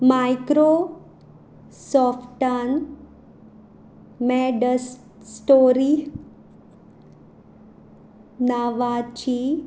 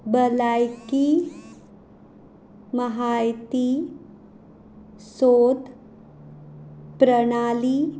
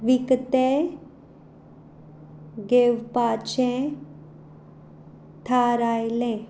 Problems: background sounds at intervals